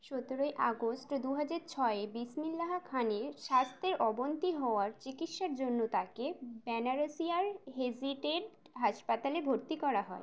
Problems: background sounds at intervals